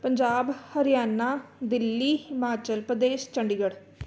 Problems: none marked